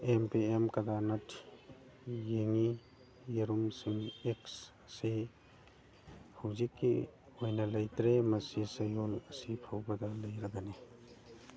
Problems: background sounds at intervals, background conversations at intervals, low volume